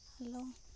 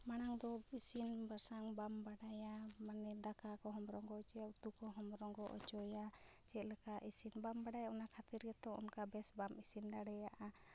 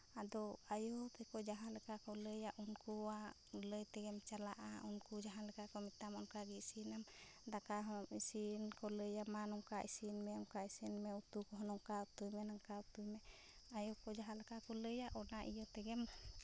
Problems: low volume